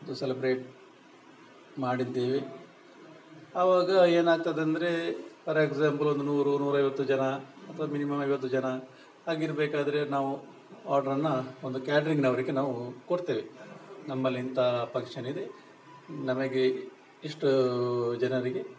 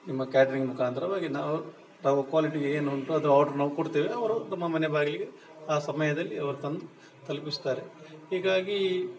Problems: background conversations at intervals